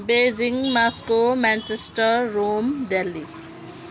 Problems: background sounds at intervals